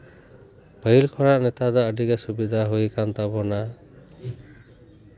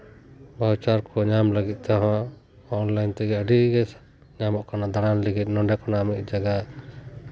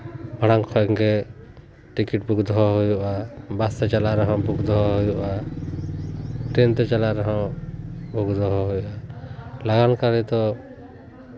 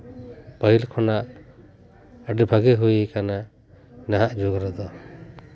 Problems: none marked